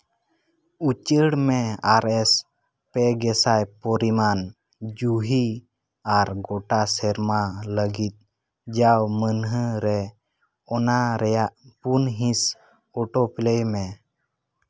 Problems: none marked